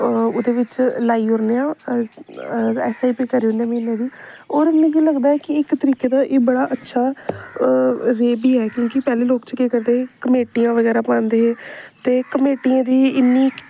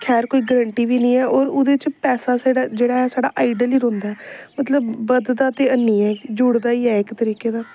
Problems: constant background noise